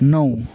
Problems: constant background noise